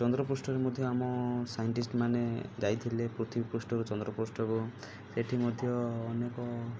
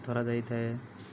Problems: low volume